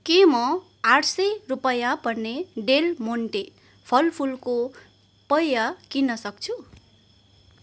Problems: constant background noise